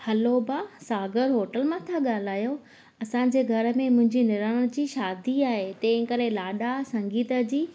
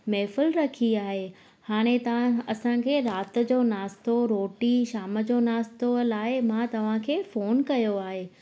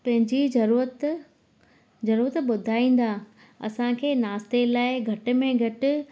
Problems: constant background noise, echo